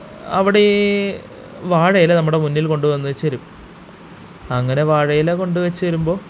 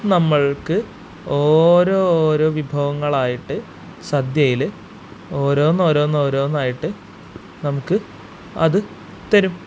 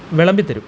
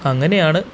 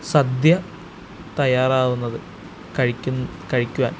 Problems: constant background noise